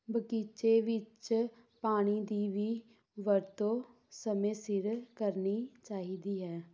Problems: none marked